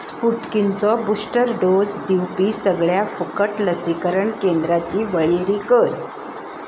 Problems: background sounds at intervals